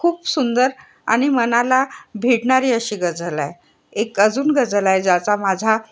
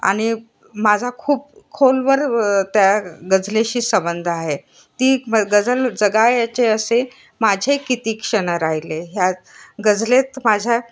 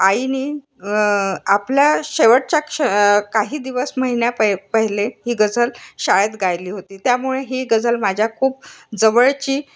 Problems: constant background noise